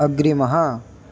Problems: constant background noise